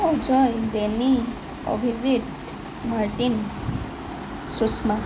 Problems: none marked